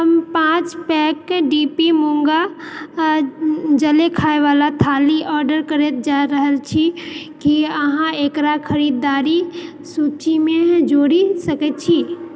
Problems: background sounds at intervals